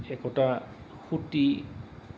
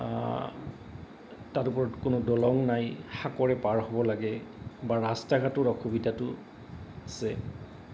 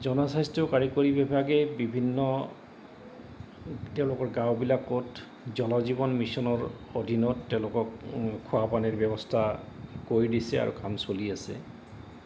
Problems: none marked